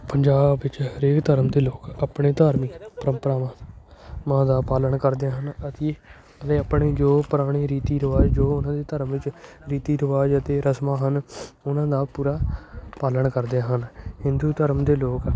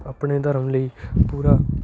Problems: constant background noise, continuous background conversations